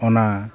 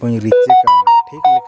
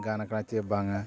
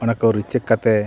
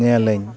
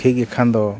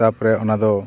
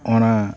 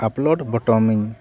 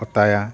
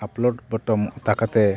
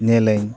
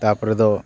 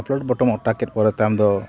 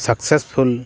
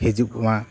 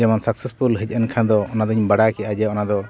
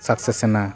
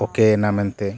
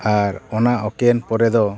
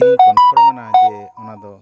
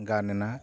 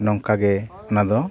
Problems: background sounds at intervals, continuous background conversations